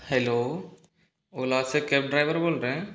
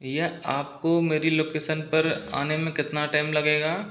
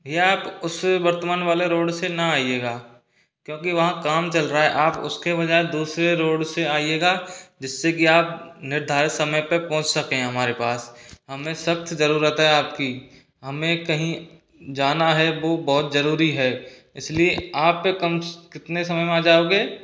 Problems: constant background noise